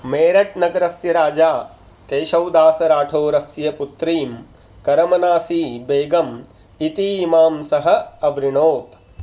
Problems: none marked